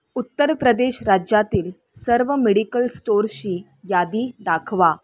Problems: none marked